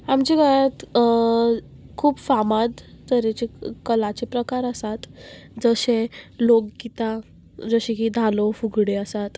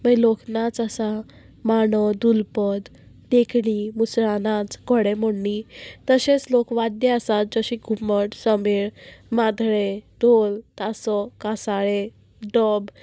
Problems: constant background noise, background conversations at intervals